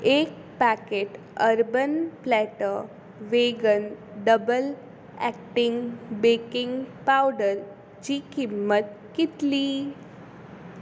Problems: constant background noise